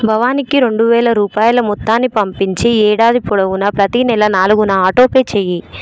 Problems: background sounds at intervals